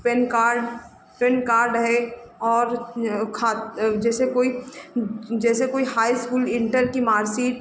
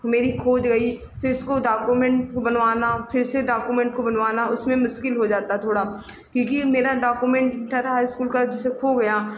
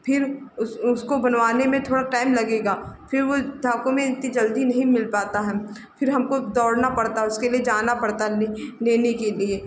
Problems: background sounds at intervals